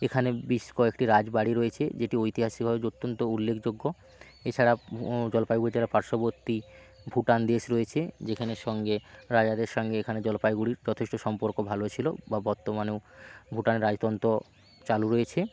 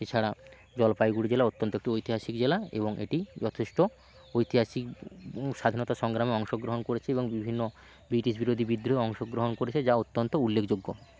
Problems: none marked